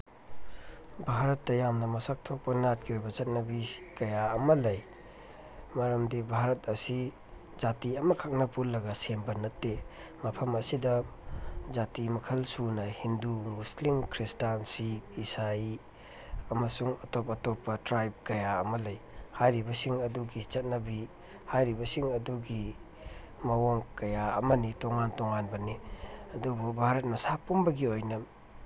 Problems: background sounds at intervals, low volume